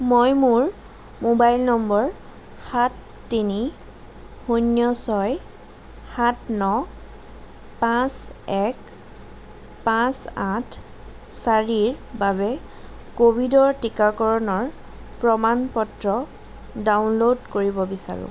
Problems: constant background noise